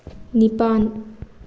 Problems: constant background noise